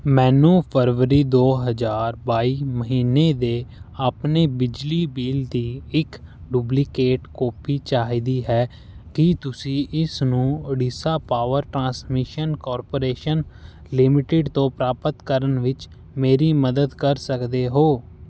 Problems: background sounds at intervals